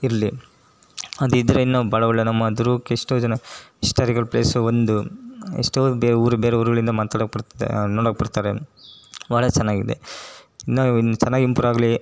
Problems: none marked